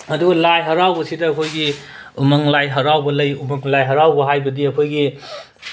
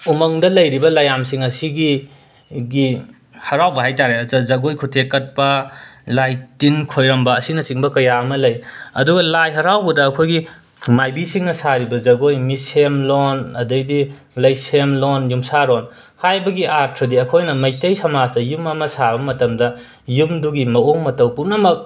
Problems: background sounds at intervals